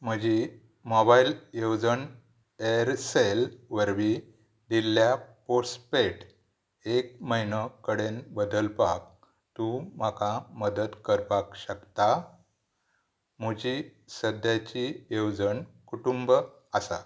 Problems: none marked